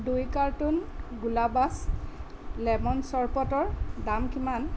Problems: constant background noise